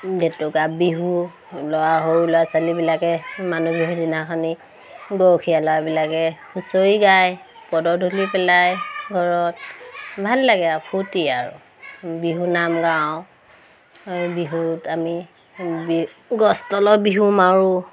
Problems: constant background noise, background conversations at intervals